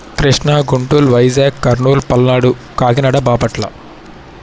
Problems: background sounds at intervals